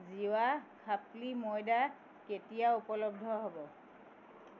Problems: background sounds at intervals